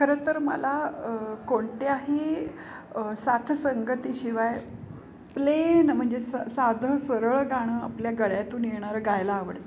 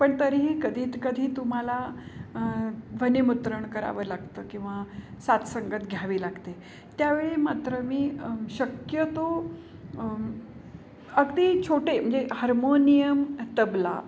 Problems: background sounds at intervals